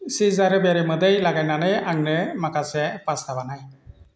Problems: constant background noise